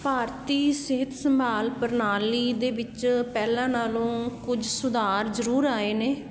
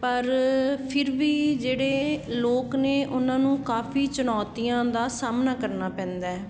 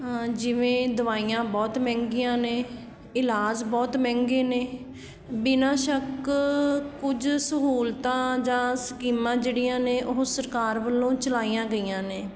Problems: none marked